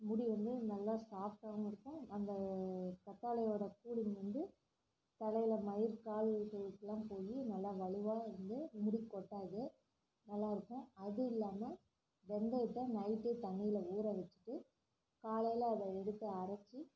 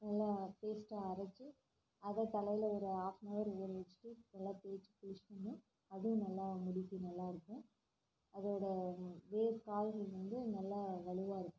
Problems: low volume